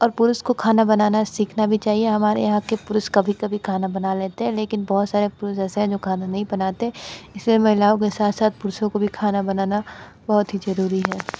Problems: constant background noise